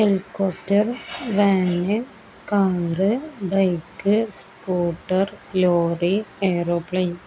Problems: none marked